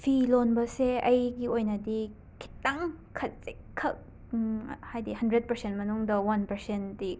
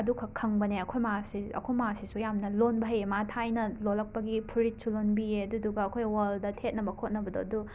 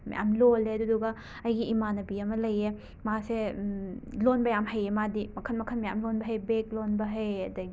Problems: background sounds at intervals